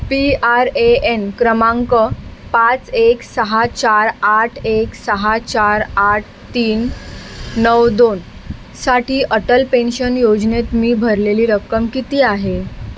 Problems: none marked